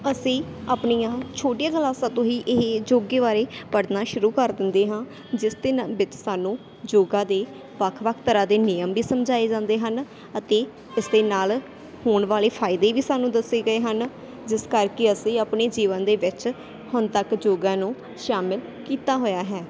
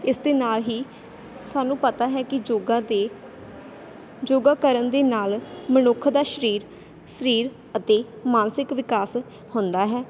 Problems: constant background noise